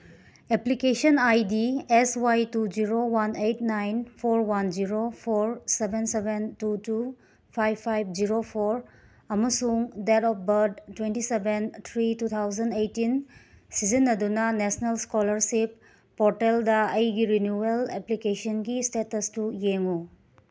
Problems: none marked